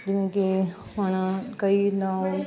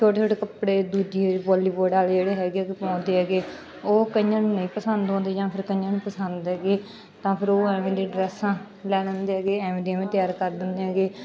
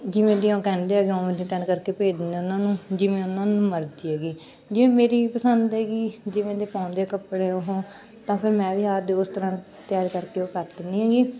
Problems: background sounds at intervals, continuous background conversations